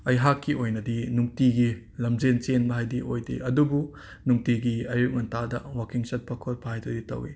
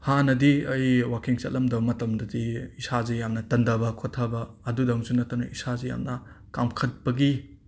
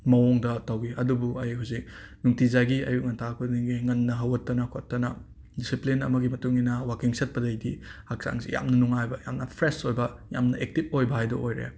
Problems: background sounds at intervals